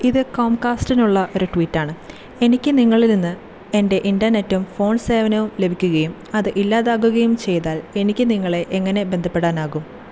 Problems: constant background noise